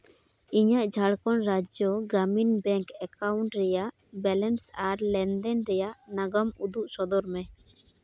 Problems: background sounds at intervals